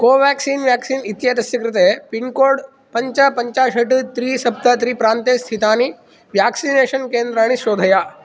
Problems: none marked